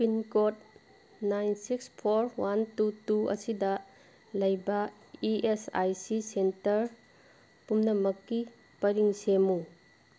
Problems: none marked